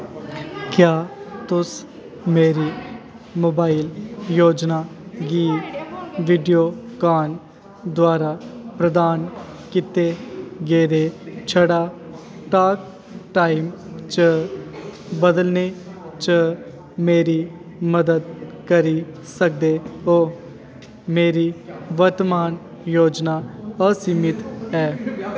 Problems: echo